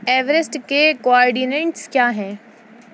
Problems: none marked